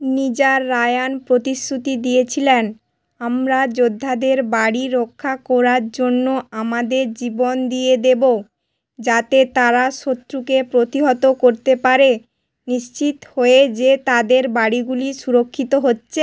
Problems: none marked